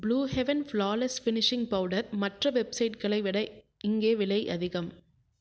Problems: low volume